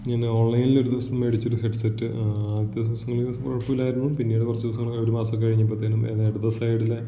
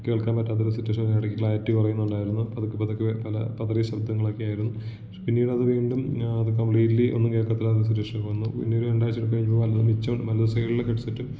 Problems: echo, low volume